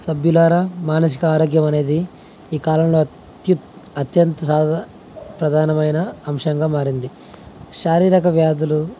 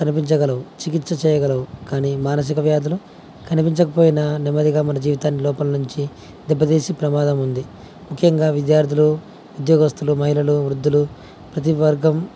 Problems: none marked